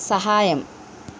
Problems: none marked